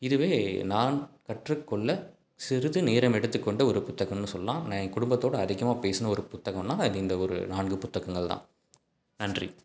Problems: background sounds at intervals